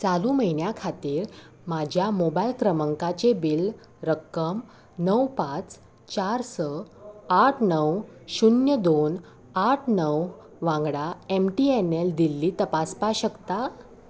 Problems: none marked